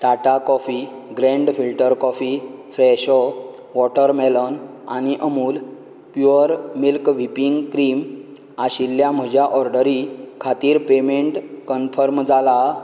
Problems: constant background noise